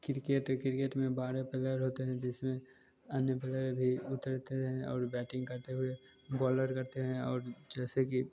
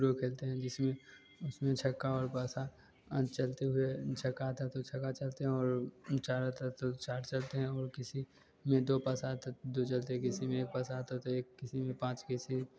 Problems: none marked